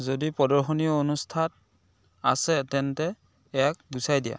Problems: none marked